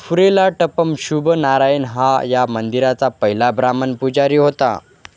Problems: constant background noise, background conversations at intervals